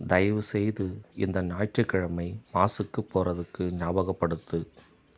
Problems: background sounds at intervals